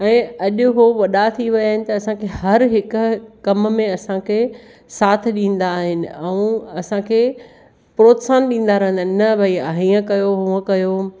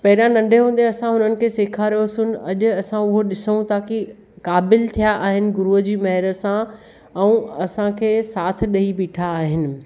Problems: none marked